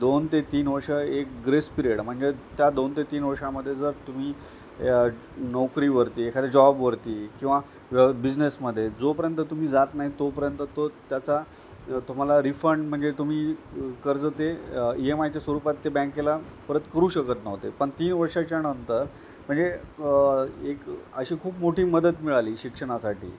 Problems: none marked